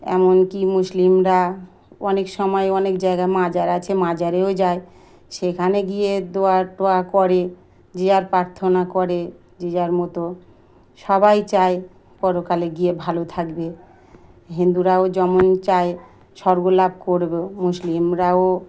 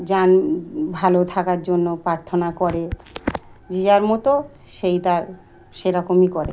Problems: constant background noise